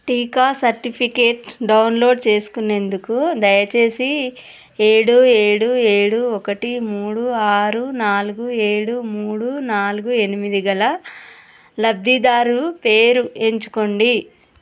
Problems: none marked